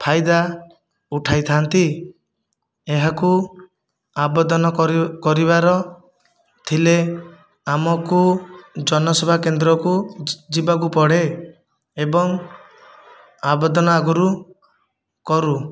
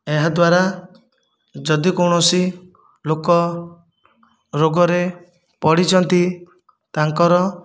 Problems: none marked